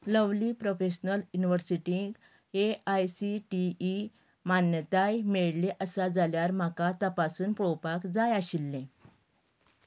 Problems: background conversations at intervals